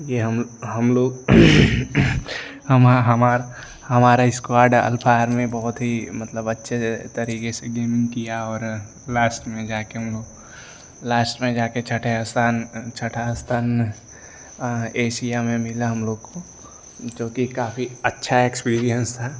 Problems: none marked